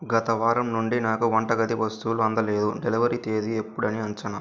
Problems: none marked